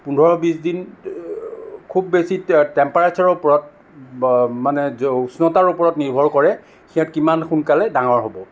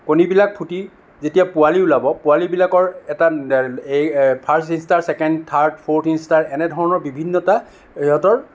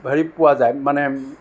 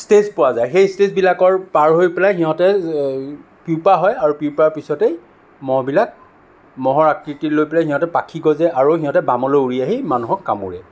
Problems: none marked